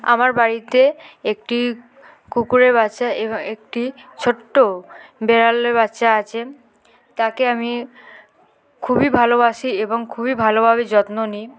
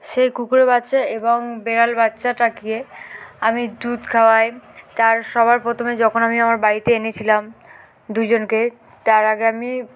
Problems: constant background noise, background conversations at intervals